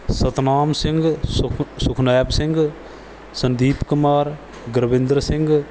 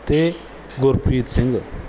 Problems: background sounds at intervals